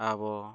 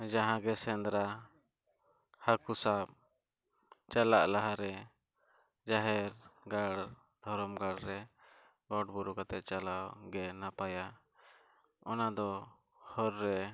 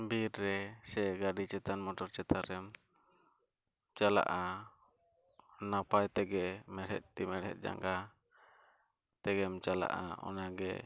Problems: background sounds at intervals, low volume